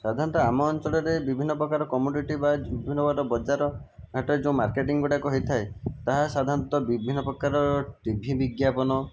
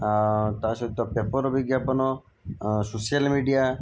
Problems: background sounds at intervals